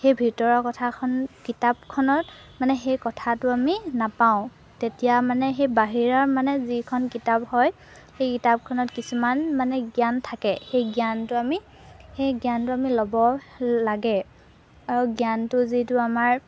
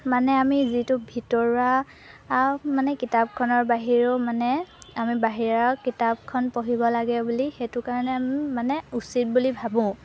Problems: background sounds at intervals